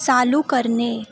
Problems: none marked